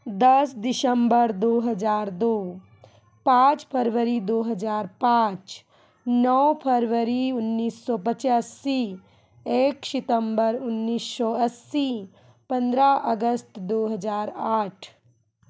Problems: background sounds at intervals, continuous background conversations